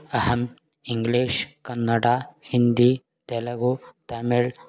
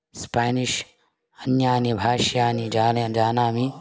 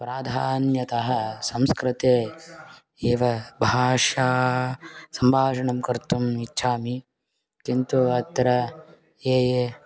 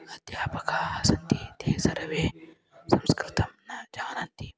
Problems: background sounds at intervals